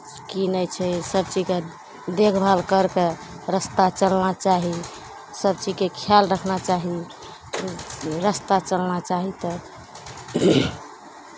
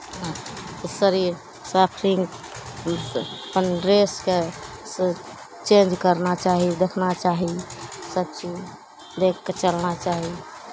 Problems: none marked